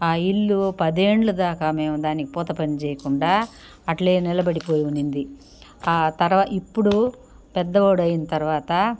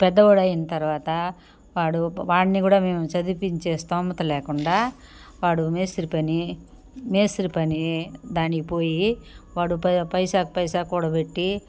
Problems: background sounds at intervals